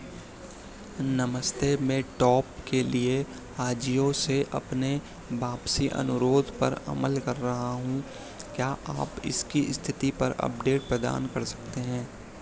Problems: none marked